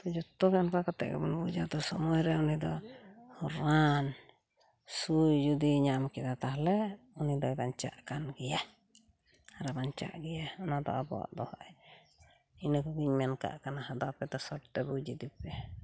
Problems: none marked